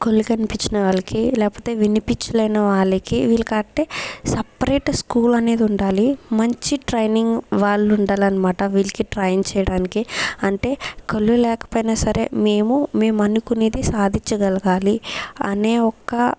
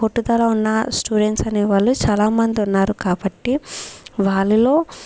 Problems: background sounds at intervals